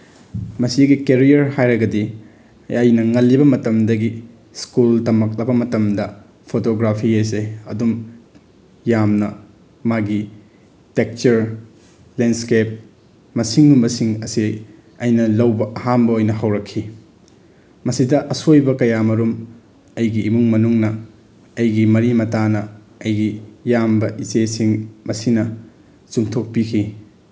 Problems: background sounds at intervals